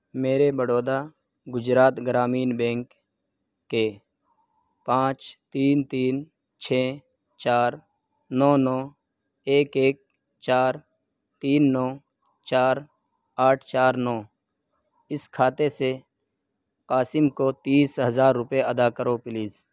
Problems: none marked